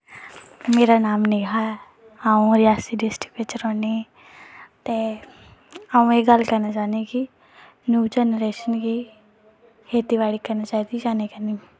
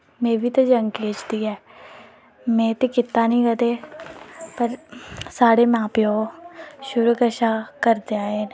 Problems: none marked